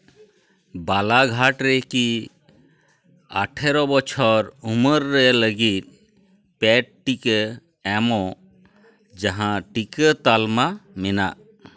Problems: background sounds at intervals, continuous background conversations